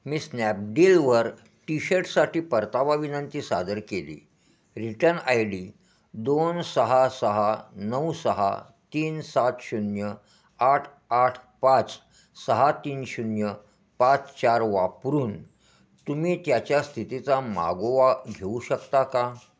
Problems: constant background noise, echo